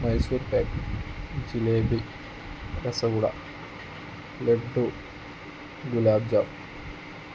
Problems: none marked